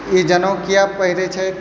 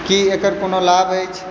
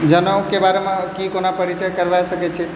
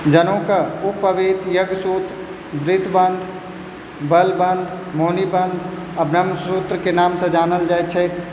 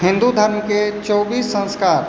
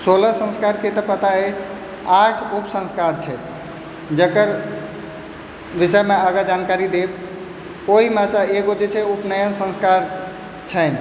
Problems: background sounds at intervals